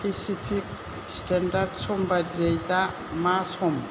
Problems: none marked